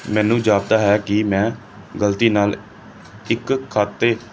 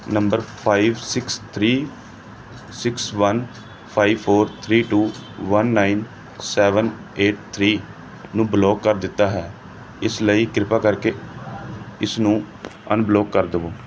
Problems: none marked